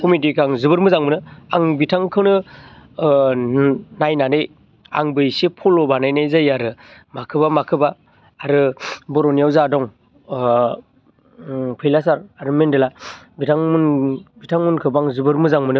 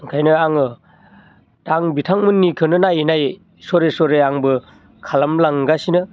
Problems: constant background noise